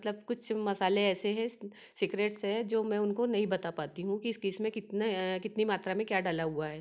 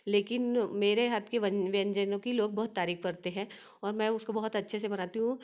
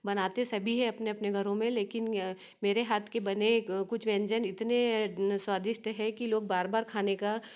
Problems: none marked